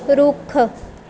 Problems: continuous background conversations